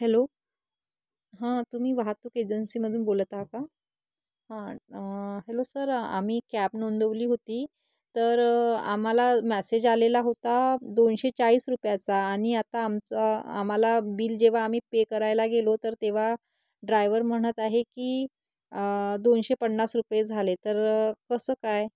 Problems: constant background noise